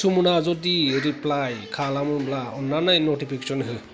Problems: background conversations at intervals